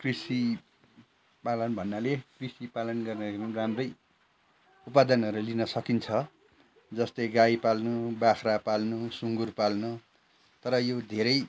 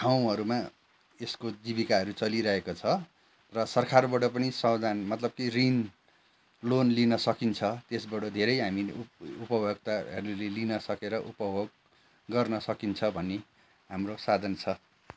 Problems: background sounds at intervals, background conversations at intervals